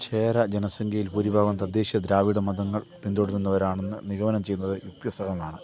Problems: constant background noise, low volume